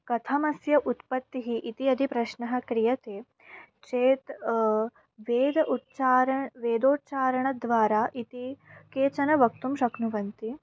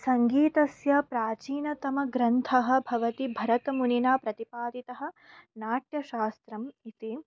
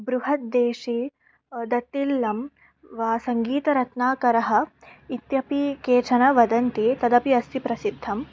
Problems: background sounds at intervals